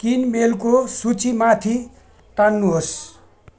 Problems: background sounds at intervals